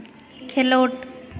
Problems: none marked